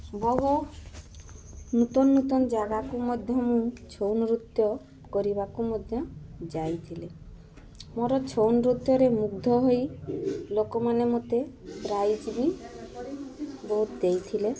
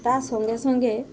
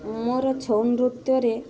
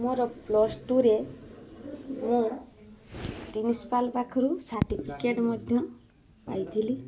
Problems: constant background noise, continuous background conversations